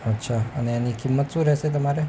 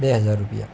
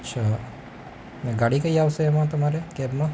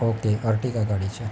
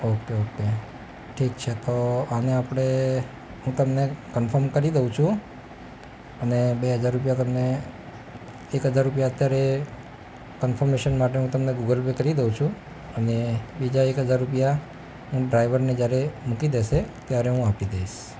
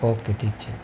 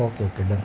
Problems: constant background noise